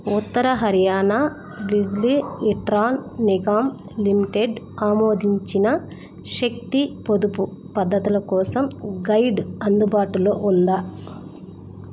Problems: none marked